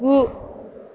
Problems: none marked